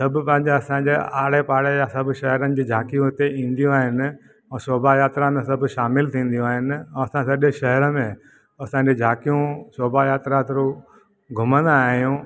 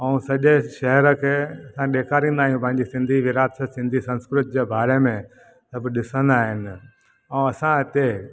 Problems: none marked